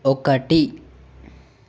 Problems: none marked